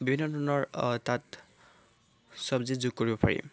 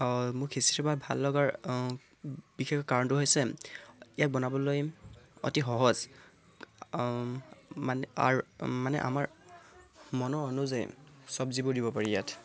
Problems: none marked